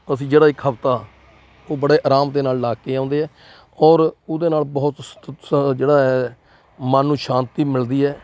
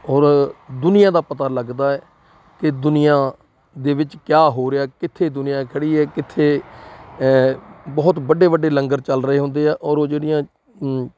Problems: constant background noise